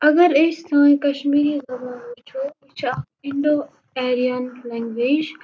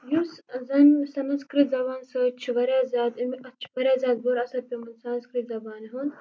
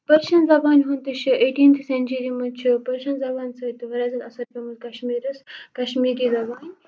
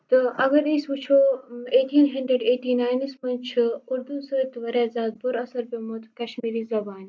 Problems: none marked